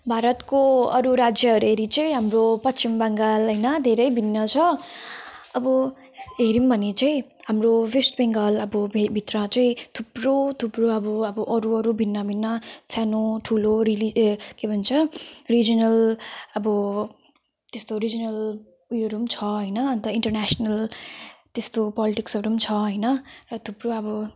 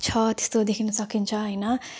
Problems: none marked